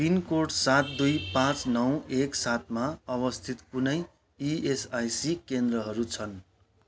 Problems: constant background noise